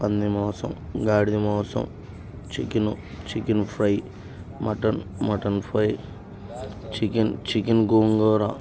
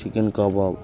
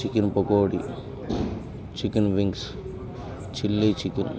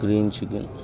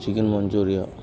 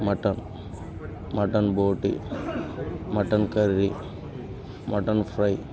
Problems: constant background noise, background conversations at intervals